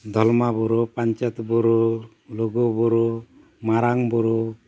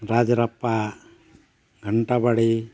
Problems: none marked